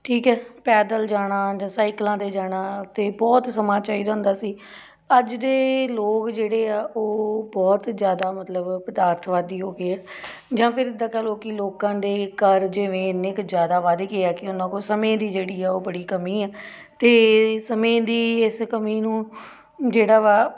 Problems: none marked